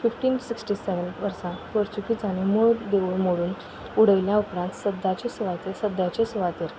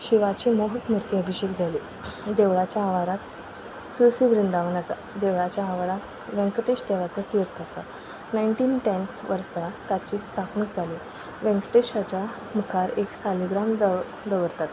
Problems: none marked